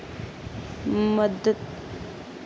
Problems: constant background noise